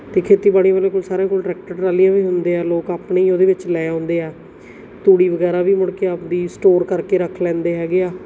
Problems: background sounds at intervals